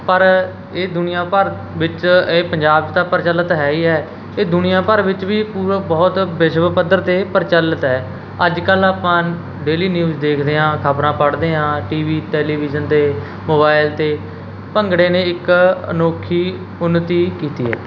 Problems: none marked